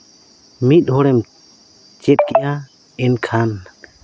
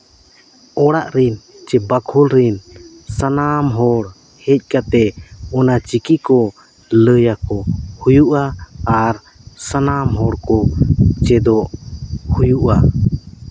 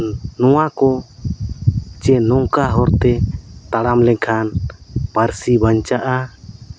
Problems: constant background noise, background conversations at intervals